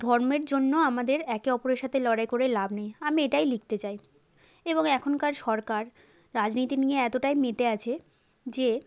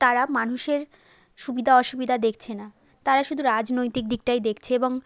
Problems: none marked